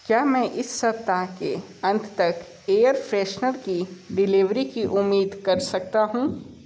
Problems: none marked